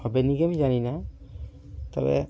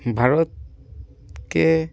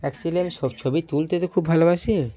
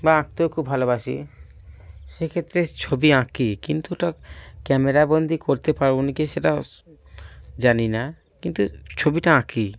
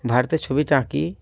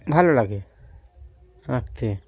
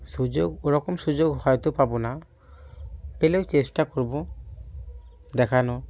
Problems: constant background noise, background conversations at intervals